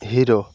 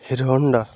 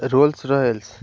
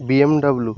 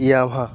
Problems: constant background noise